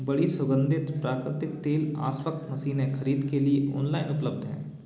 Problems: constant background noise